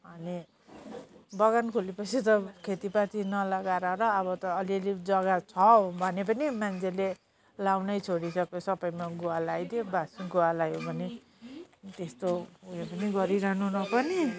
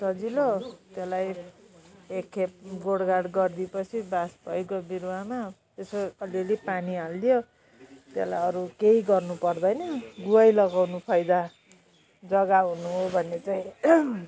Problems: constant background noise